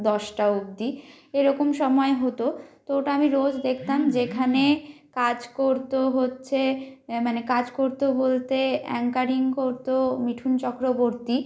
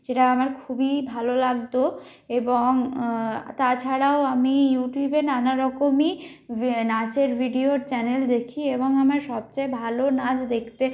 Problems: constant background noise